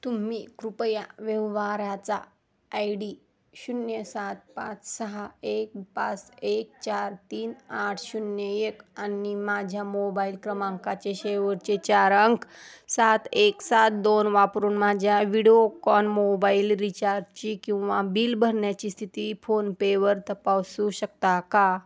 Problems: none marked